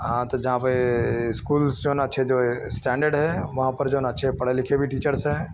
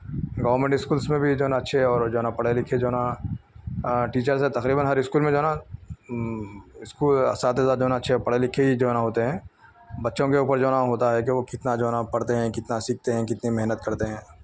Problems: none marked